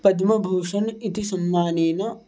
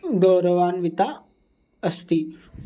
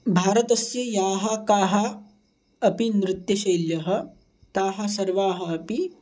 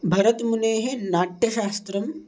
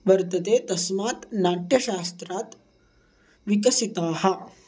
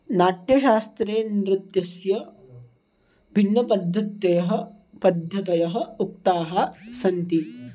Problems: background sounds at intervals